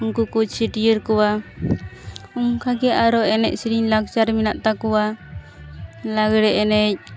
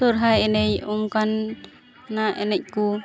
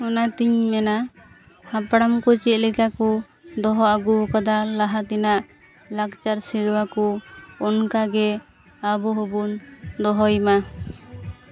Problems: constant background noise, continuous background conversations